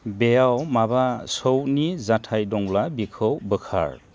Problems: low volume